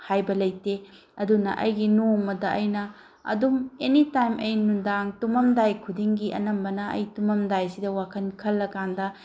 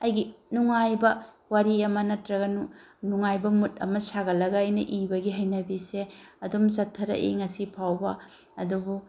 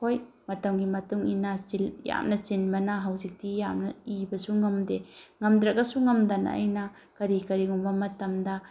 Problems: background sounds at intervals